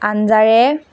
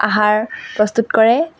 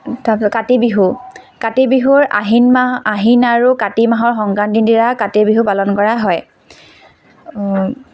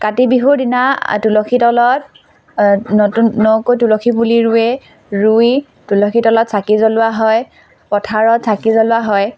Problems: constant background noise, background conversations at intervals